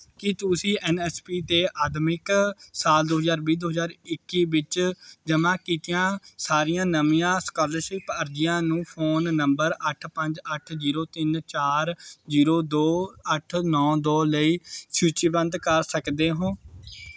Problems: background conversations at intervals